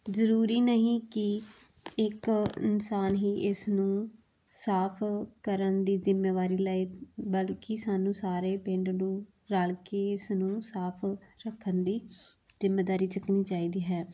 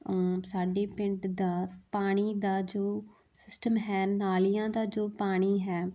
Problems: background sounds at intervals